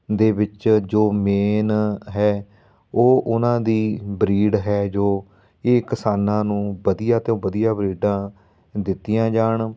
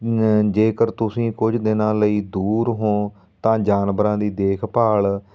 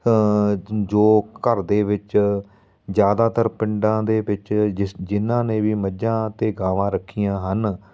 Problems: background sounds at intervals